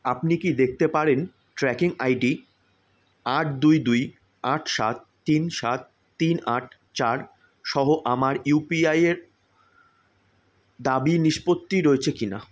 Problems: none marked